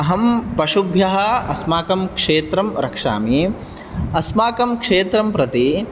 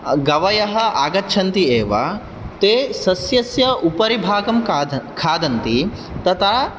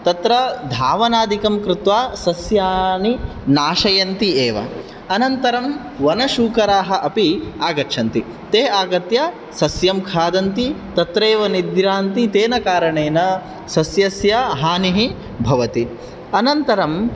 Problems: none marked